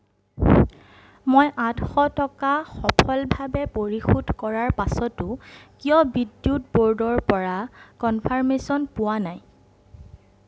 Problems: none marked